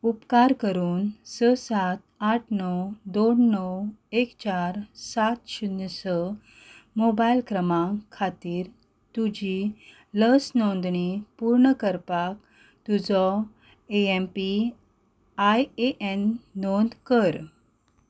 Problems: none marked